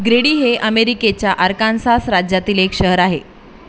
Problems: none marked